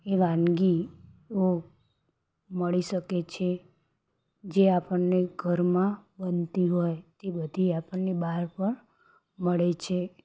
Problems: background sounds at intervals